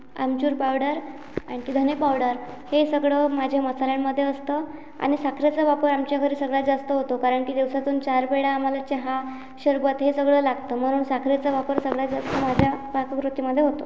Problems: constant background noise